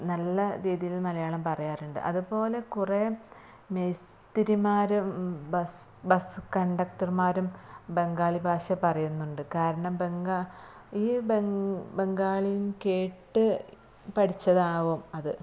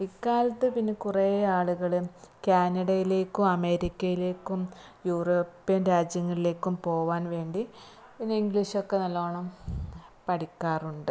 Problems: low volume